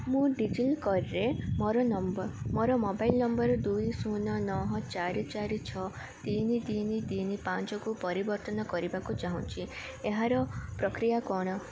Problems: constant background noise, continuous background conversations